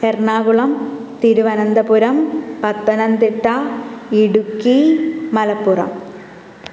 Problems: background sounds at intervals